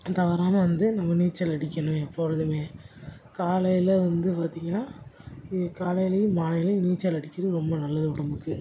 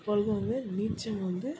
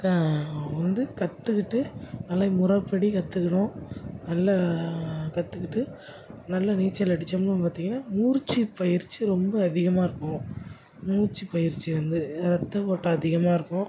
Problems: none marked